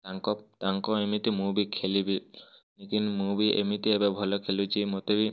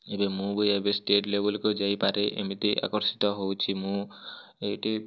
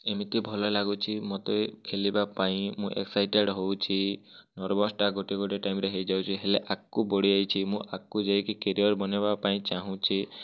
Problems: none marked